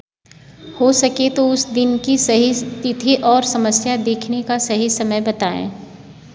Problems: background sounds at intervals